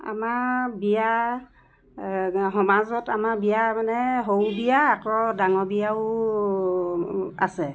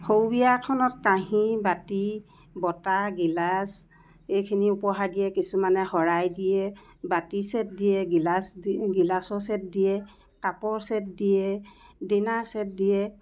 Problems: none marked